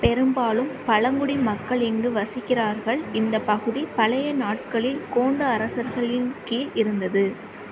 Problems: constant background noise